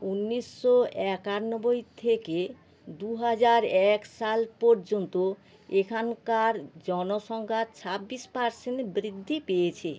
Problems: constant background noise